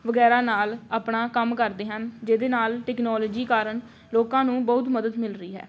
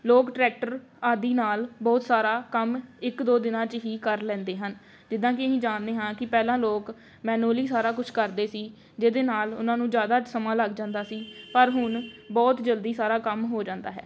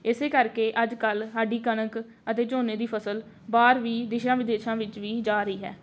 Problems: none marked